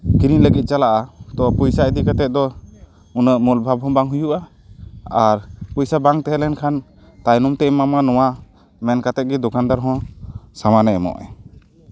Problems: none marked